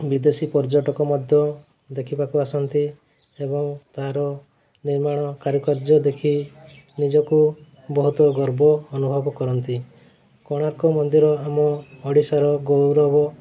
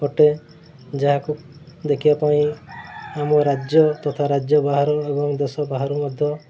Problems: constant background noise